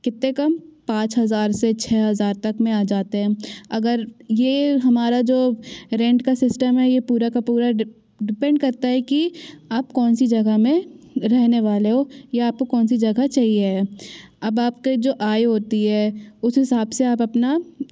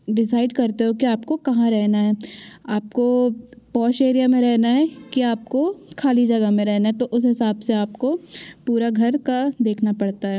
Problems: background sounds at intervals